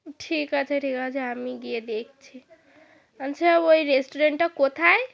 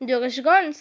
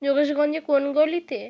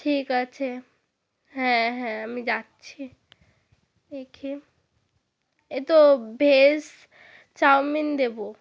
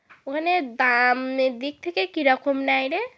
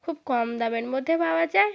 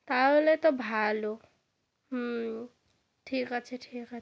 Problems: constant background noise